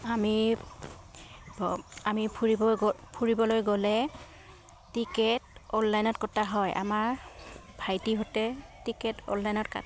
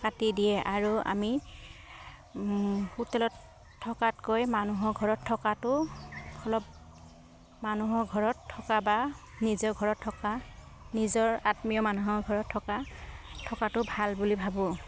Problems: background sounds at intervals